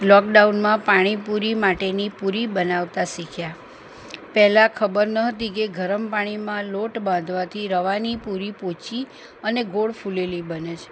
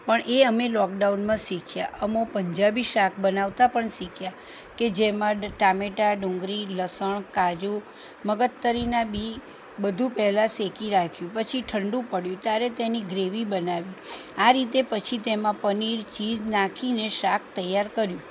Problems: none marked